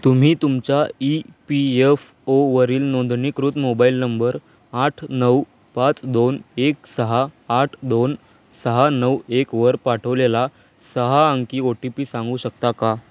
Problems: none marked